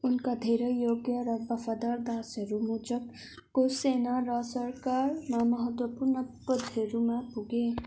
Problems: constant background noise